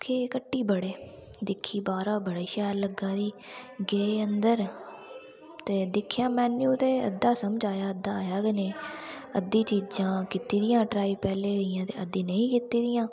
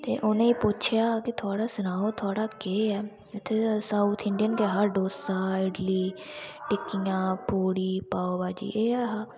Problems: constant background noise